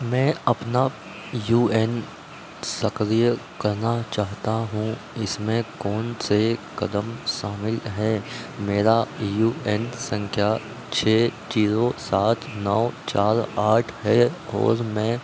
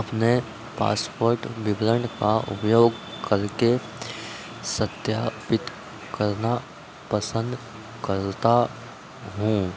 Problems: constant background noise